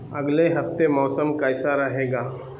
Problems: constant background noise